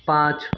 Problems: background sounds at intervals